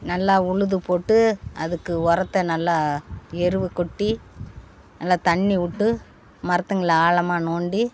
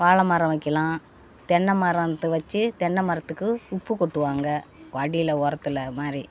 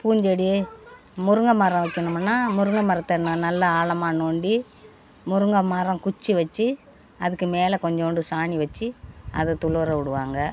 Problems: constant background noise, background conversations at intervals